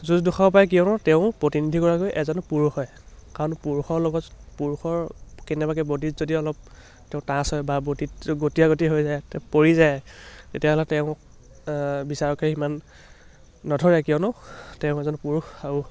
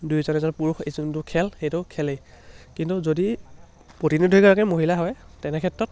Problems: none marked